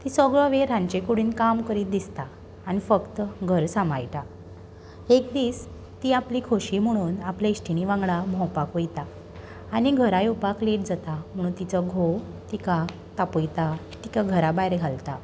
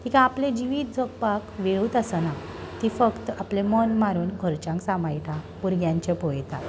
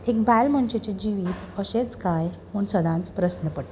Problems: constant background noise